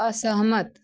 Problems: none marked